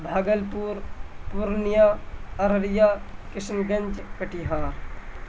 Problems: constant background noise